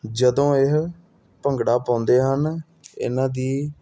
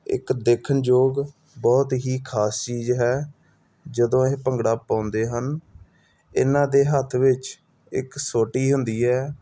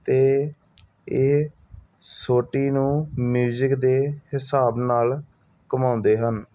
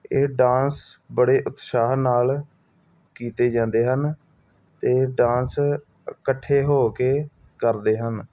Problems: none marked